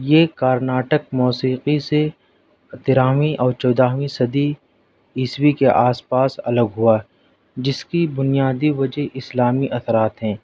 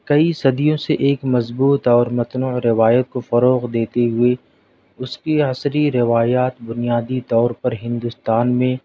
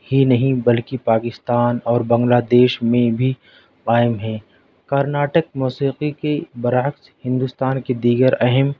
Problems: none marked